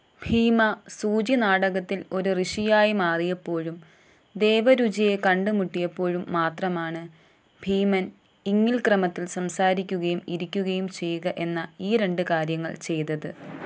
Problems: background sounds at intervals